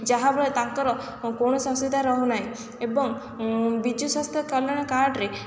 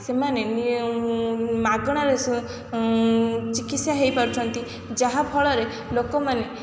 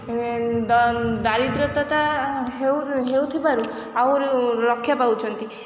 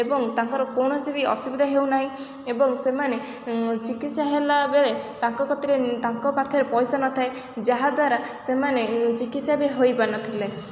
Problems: background sounds at intervals, background conversations at intervals